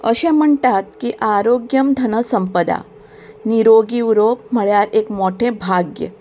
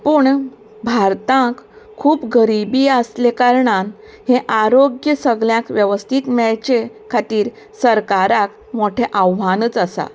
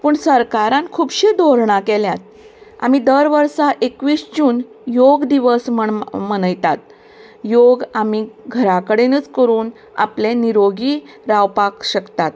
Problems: background sounds at intervals